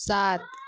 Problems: none marked